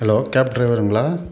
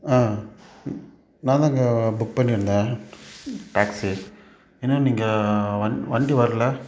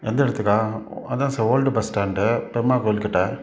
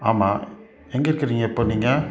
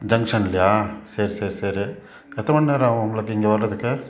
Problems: background sounds at intervals